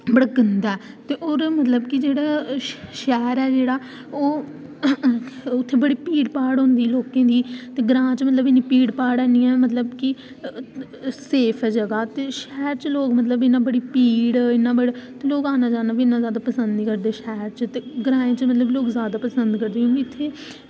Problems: constant background noise